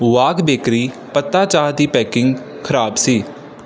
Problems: none marked